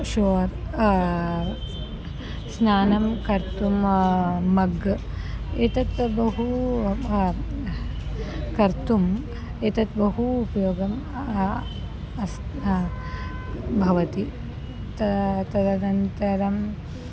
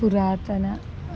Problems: background sounds at intervals